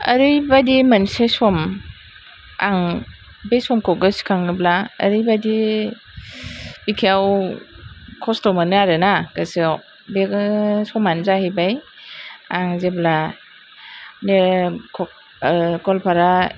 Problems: none marked